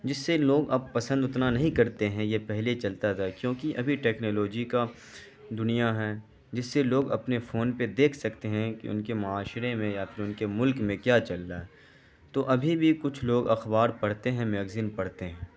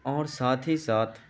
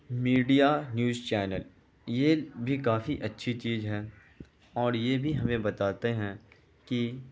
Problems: constant background noise